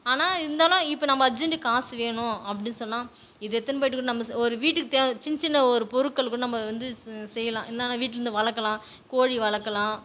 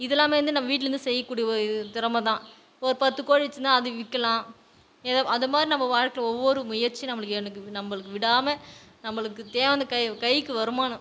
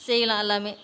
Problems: background sounds at intervals, background conversations at intervals